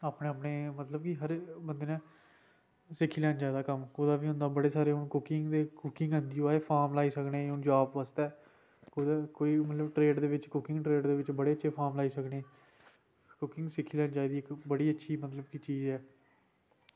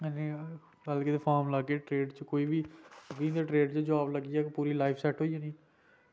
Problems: background sounds at intervals